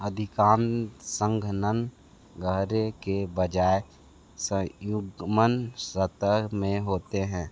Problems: constant background noise